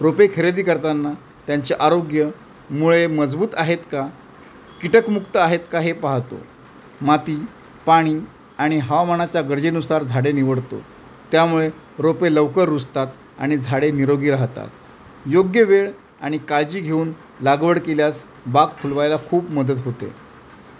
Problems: constant background noise